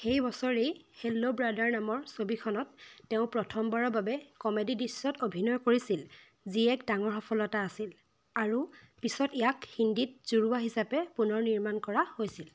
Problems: background sounds at intervals